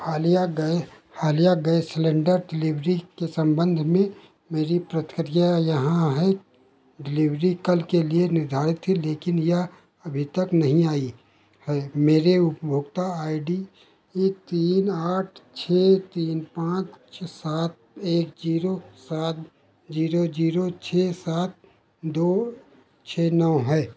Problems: constant background noise